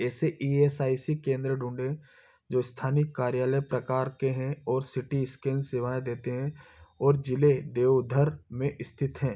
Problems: background sounds at intervals